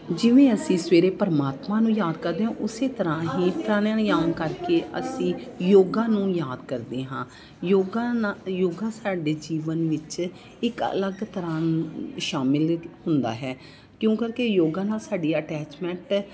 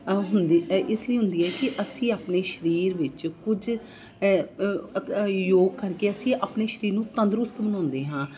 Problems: constant background noise, background conversations at intervals